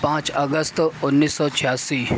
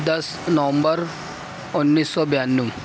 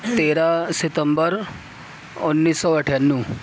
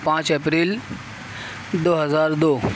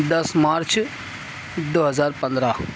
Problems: constant background noise, background conversations at intervals